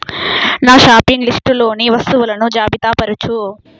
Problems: background sounds at intervals